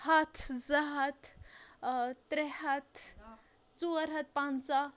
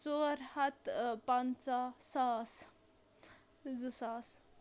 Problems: background conversations at intervals